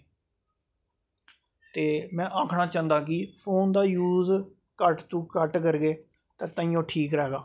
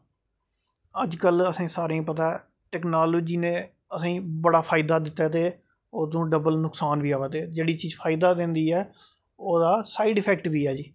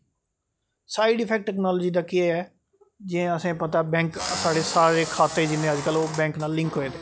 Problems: none marked